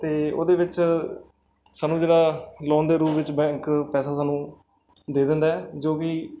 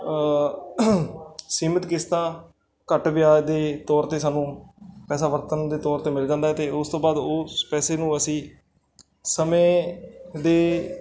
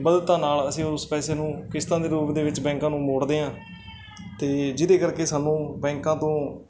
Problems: background sounds at intervals, background conversations at intervals